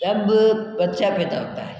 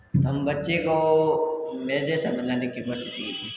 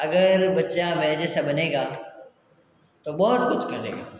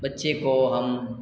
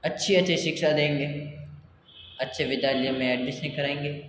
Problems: constant background noise